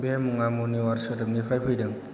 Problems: constant background noise